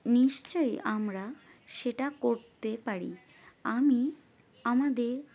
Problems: none marked